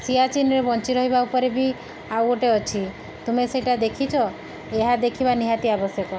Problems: background sounds at intervals